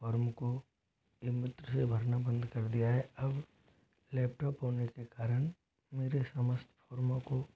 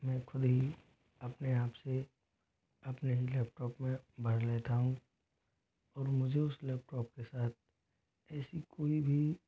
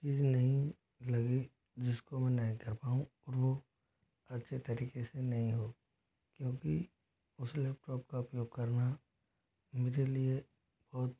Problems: constant background noise, low volume